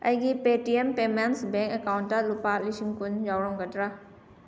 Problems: none marked